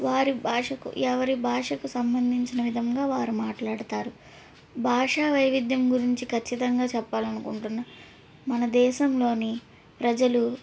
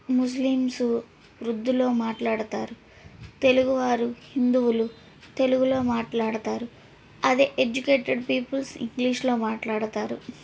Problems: background sounds at intervals, background conversations at intervals